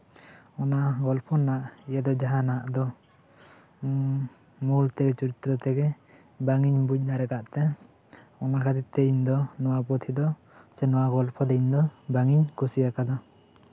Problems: constant background noise, background conversations at intervals